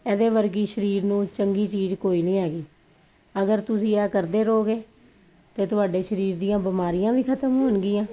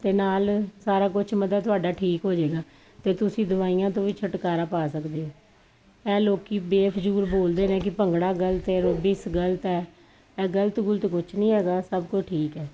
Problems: none marked